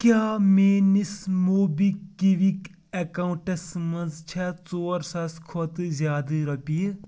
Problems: background sounds at intervals